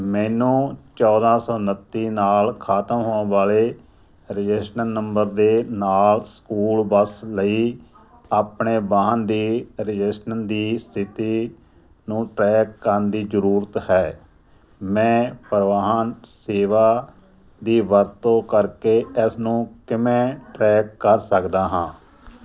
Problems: none marked